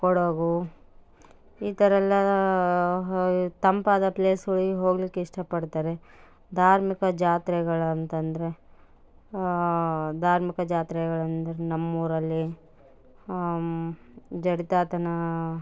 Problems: background sounds at intervals